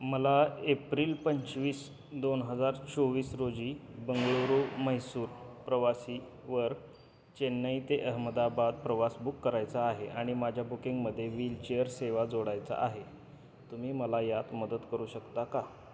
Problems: constant background noise, continuous background conversations